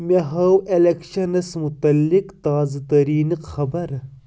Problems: none marked